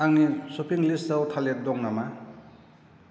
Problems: none marked